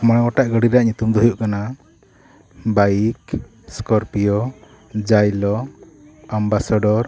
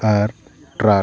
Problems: continuous background conversations